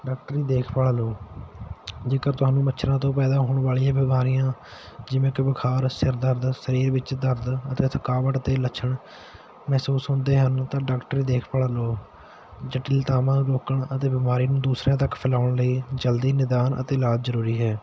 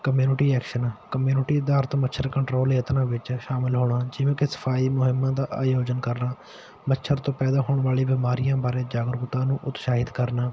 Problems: background sounds at intervals